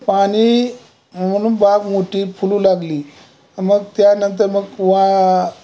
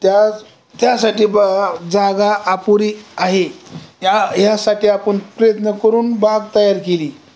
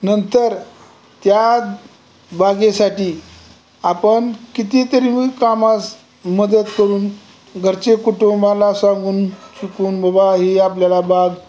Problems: none marked